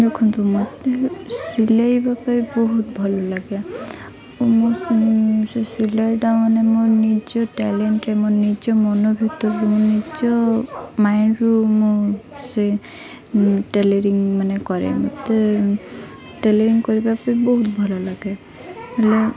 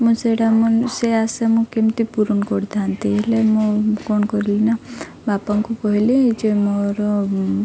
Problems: constant background noise, continuous background conversations